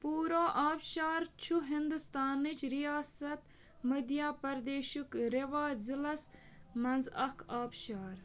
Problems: background sounds at intervals